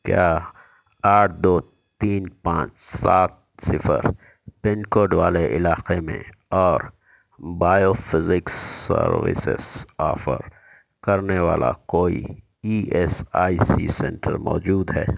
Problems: none marked